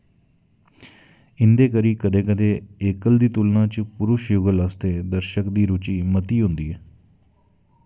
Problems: none marked